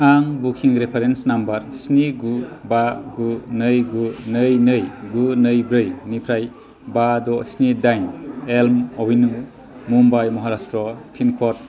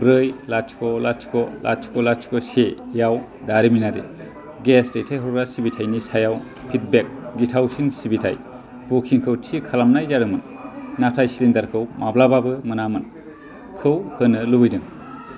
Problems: constant background noise